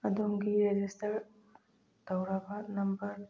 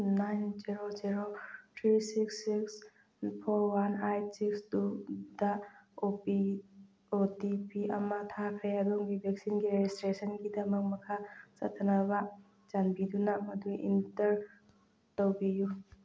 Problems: none marked